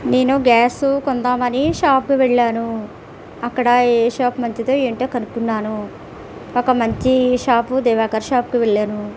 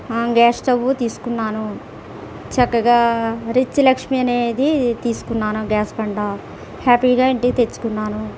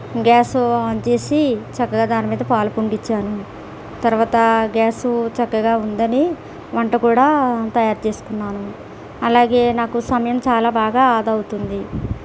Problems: constant background noise